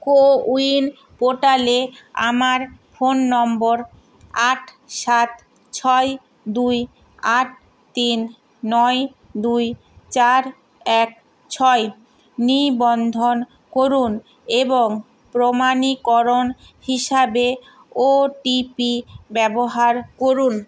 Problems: background sounds at intervals